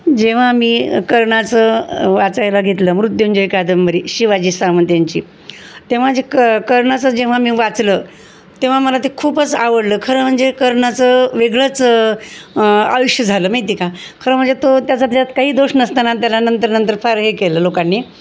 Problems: none marked